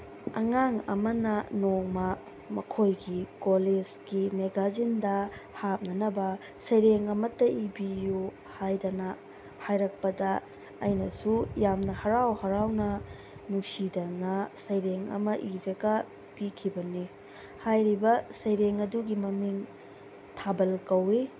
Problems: constant background noise